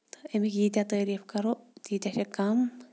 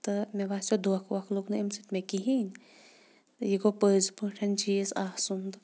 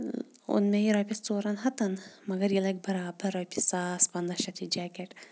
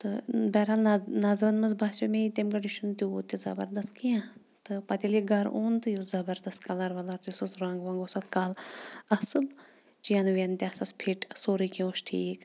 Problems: background sounds at intervals